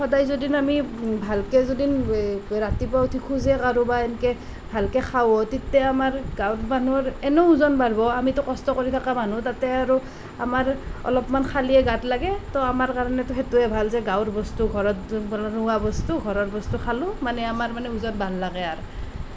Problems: constant background noise